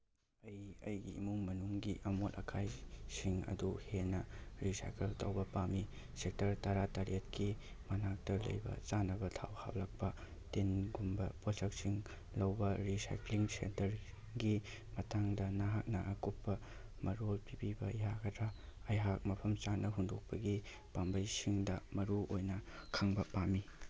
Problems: background sounds at intervals